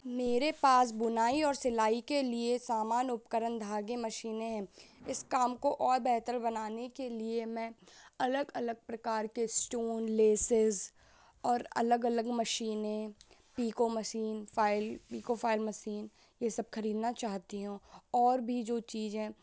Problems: constant background noise